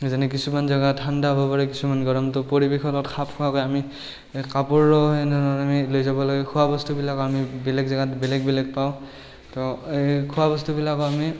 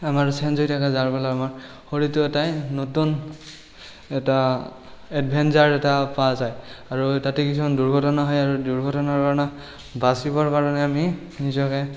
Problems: none marked